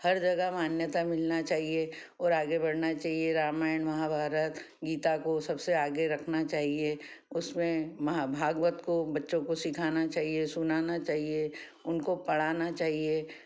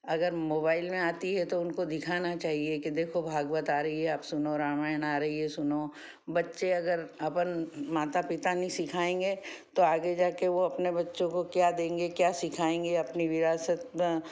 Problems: none marked